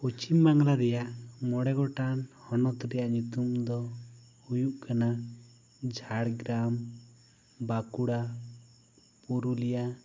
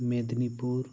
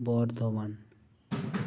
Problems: none marked